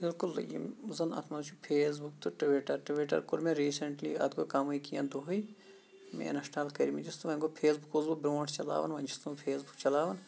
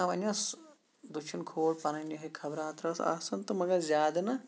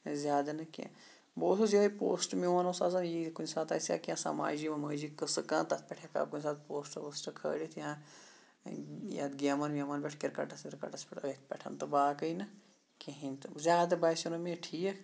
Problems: background sounds at intervals, low volume